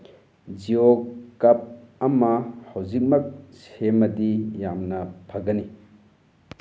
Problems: none marked